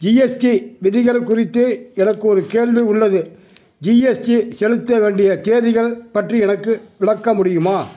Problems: none marked